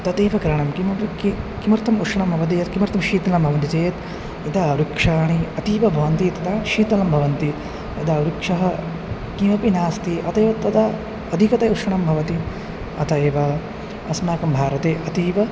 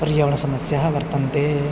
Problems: constant background noise